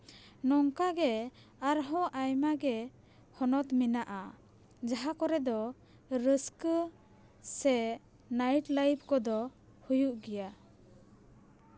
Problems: background sounds at intervals